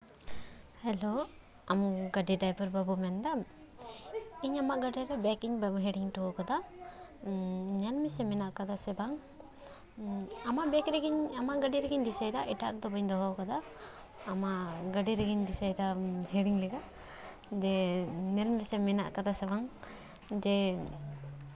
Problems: continuous background conversations